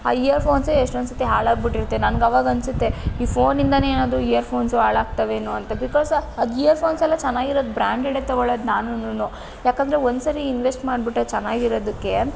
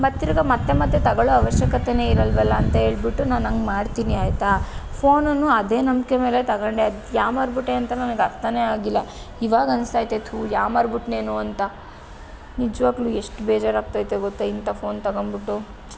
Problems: none marked